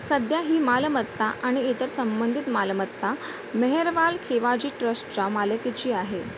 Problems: constant background noise